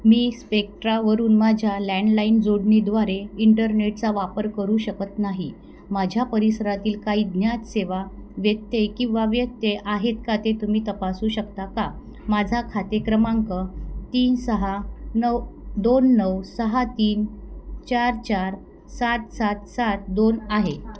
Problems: none marked